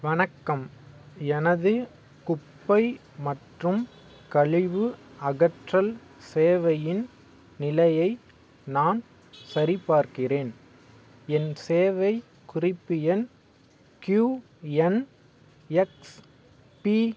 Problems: none marked